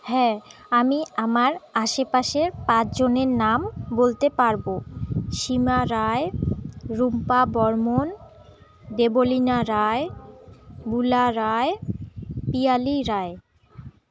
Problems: continuous background conversations